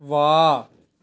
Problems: background conversations at intervals